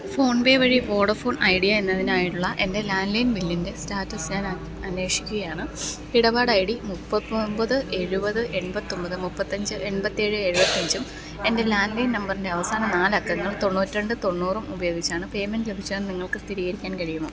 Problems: none marked